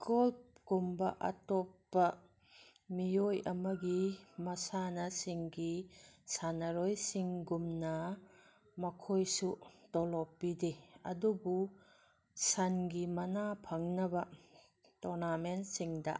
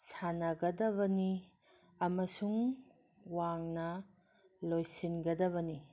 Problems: none marked